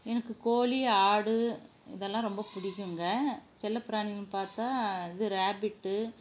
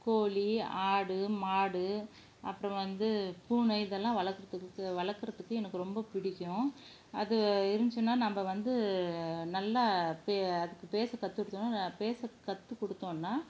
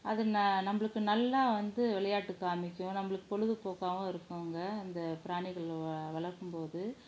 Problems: low volume